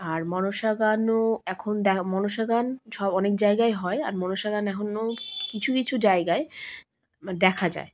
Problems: constant background noise